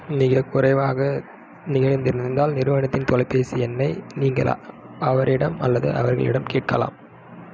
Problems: none marked